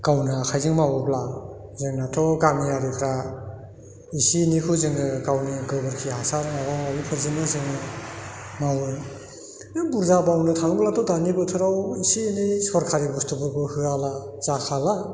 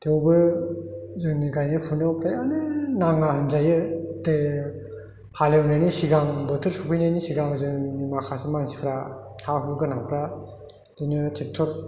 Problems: none marked